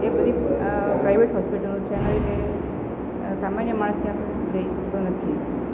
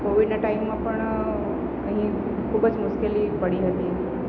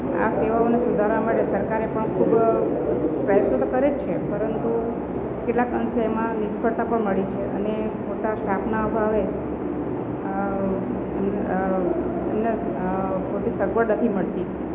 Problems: background conversations at intervals